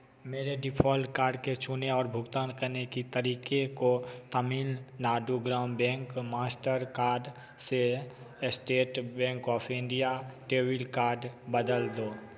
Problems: none marked